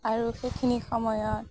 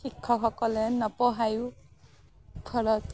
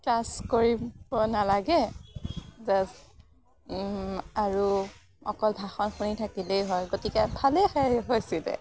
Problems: none marked